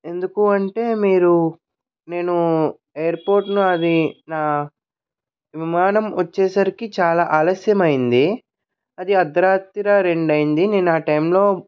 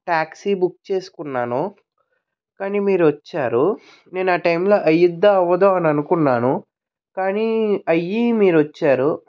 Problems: background sounds at intervals